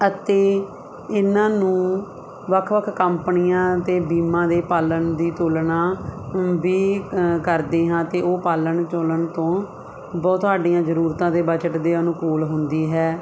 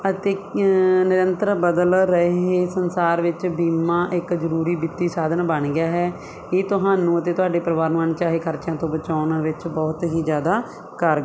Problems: constant background noise